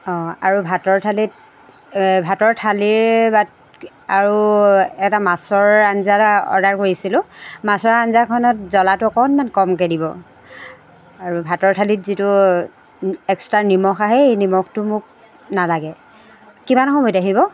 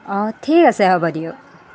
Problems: constant background noise